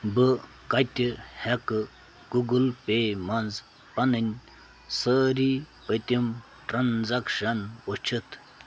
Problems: constant background noise